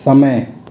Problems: constant background noise, echo